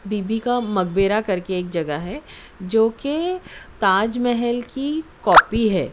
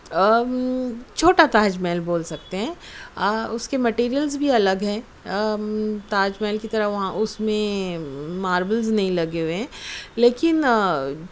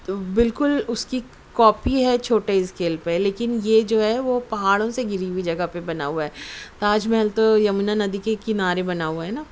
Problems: constant background noise